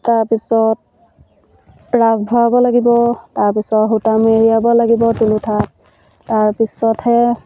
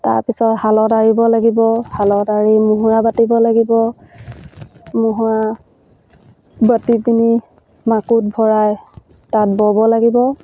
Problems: none marked